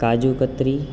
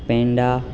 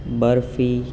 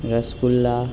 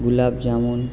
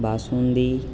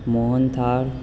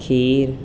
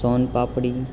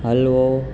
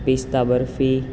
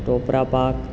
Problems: none marked